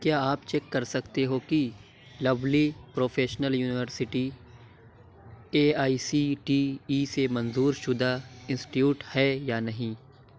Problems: background sounds at intervals